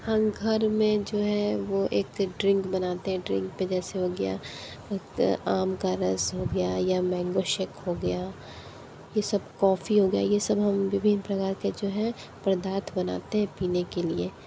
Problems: none marked